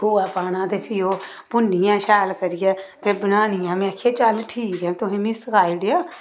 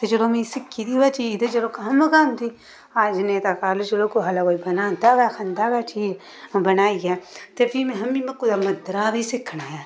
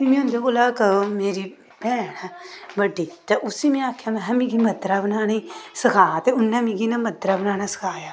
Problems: background sounds at intervals